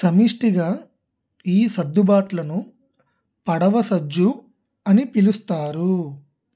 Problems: none marked